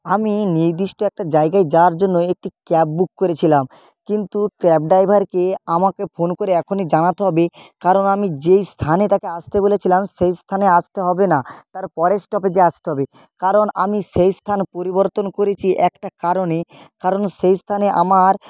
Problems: none marked